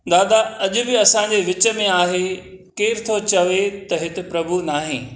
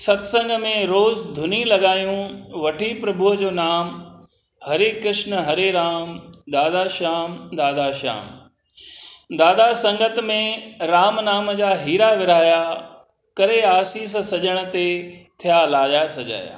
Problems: none marked